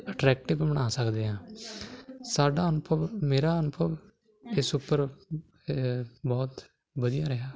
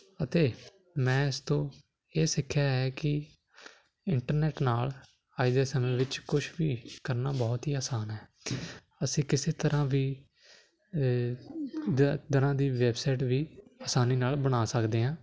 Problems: none marked